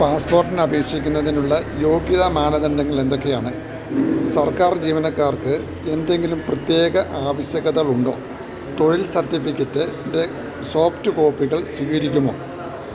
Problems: none marked